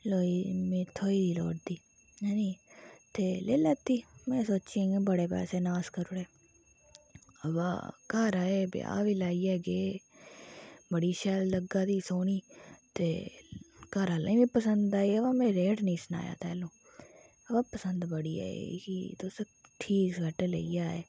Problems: background sounds at intervals